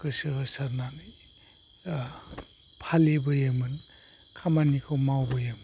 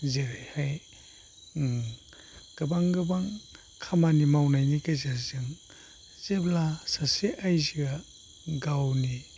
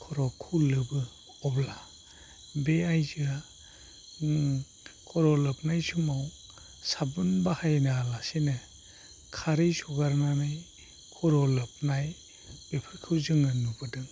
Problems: low volume